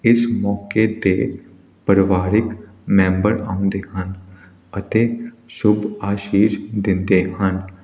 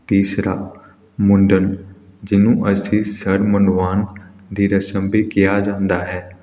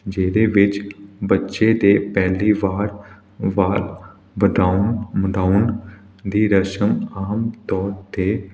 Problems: none marked